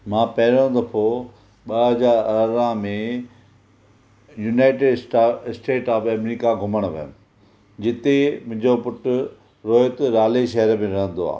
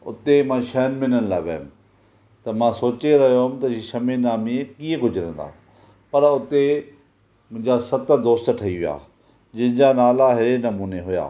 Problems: none marked